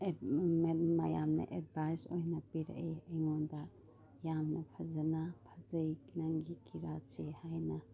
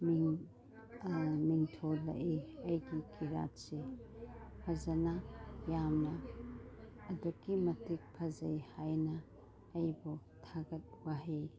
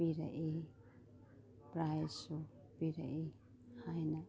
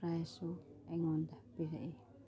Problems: none marked